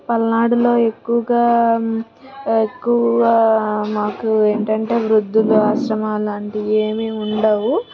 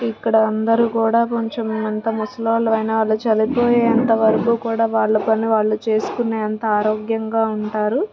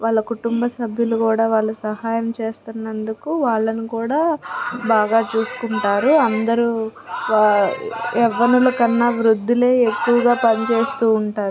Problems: constant background noise, background conversations at intervals